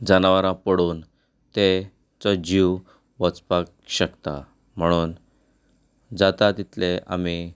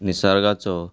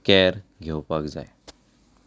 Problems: none marked